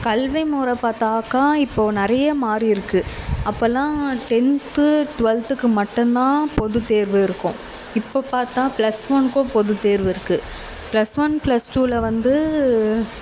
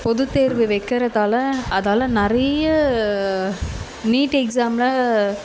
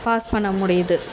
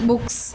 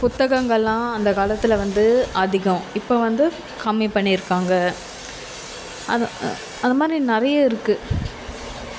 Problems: constant background noise